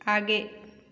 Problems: none marked